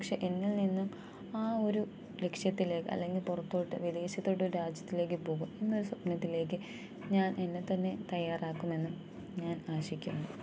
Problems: low volume